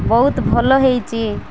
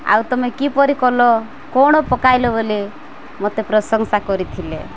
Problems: constant background noise